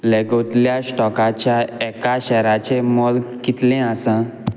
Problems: constant background noise